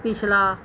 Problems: background sounds at intervals